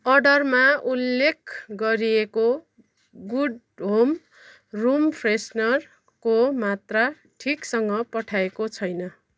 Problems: none marked